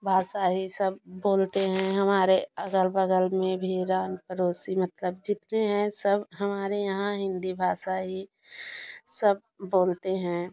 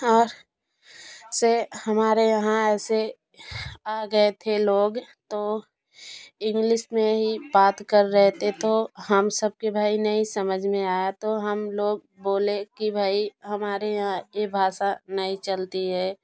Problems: constant background noise